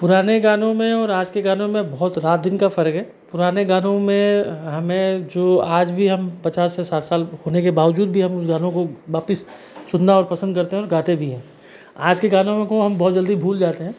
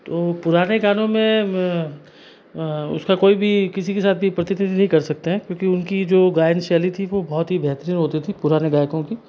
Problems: background conversations at intervals